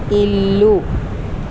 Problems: constant background noise